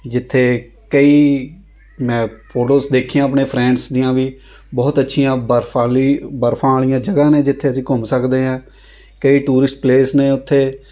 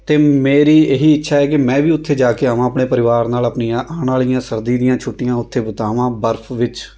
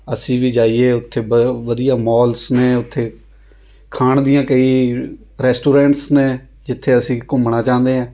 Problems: constant background noise